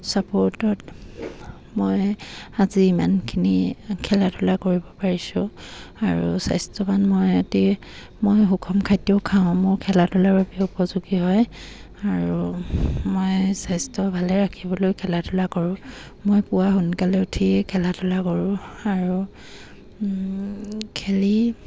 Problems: none marked